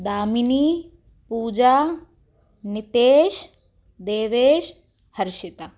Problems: none marked